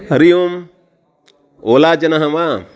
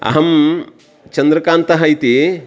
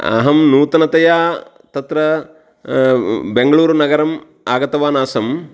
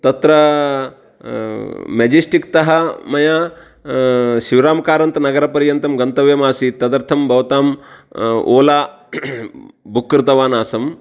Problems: background sounds at intervals